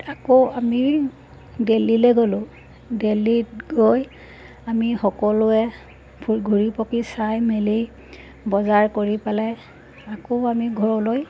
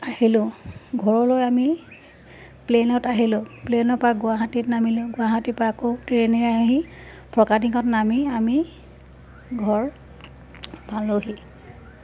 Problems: background sounds at intervals